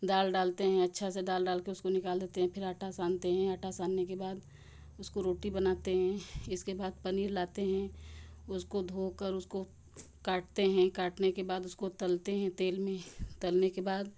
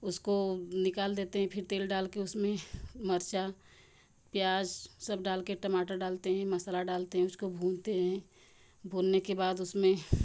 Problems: none marked